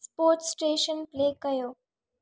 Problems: none marked